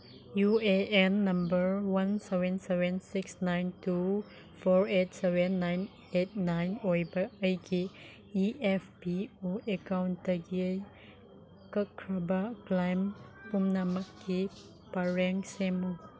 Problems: constant background noise